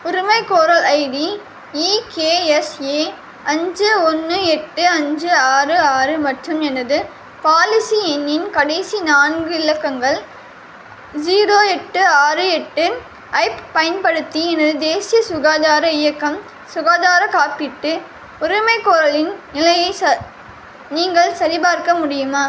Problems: constant background noise